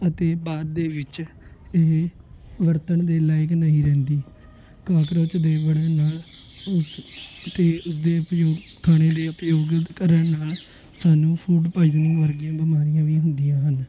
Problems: constant background noise